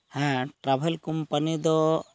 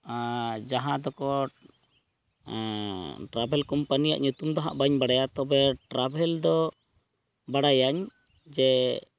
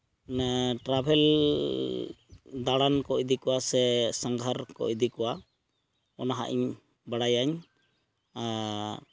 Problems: background sounds at intervals